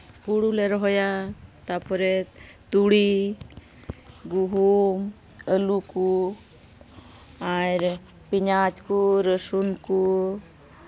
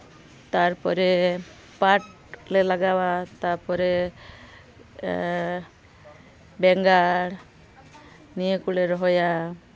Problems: constant background noise, background conversations at intervals